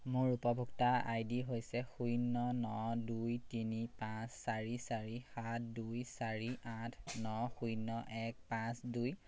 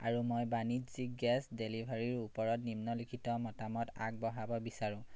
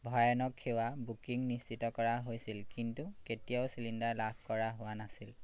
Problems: none marked